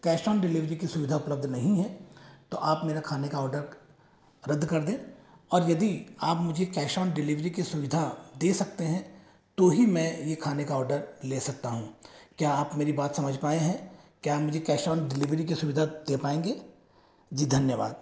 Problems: echo